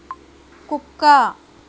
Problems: constant background noise